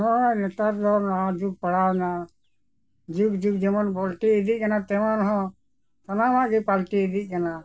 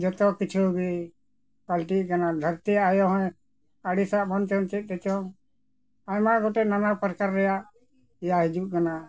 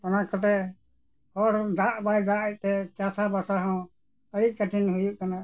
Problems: background sounds at intervals, background conversations at intervals